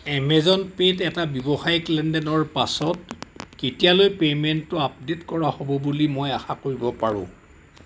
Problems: constant background noise